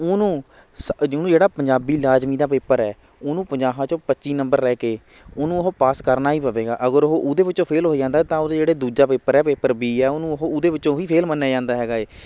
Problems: none marked